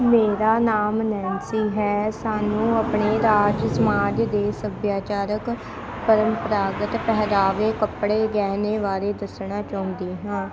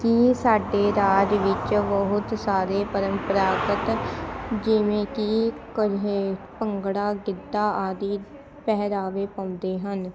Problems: constant background noise, continuous background conversations